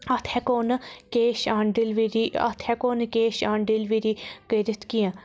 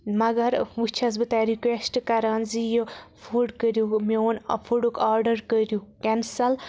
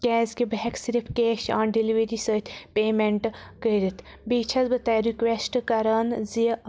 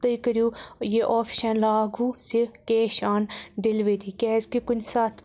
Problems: none marked